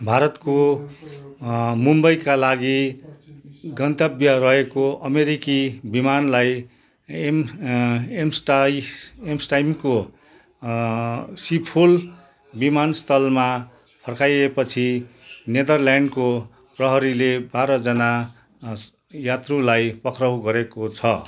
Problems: continuous background conversations